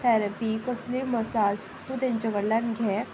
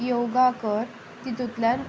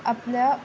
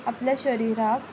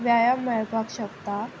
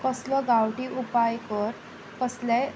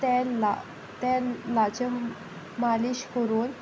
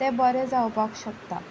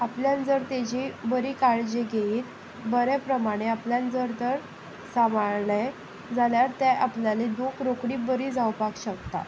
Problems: constant background noise